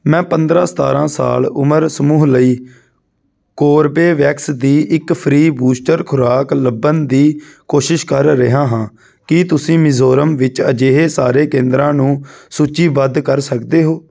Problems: background sounds at intervals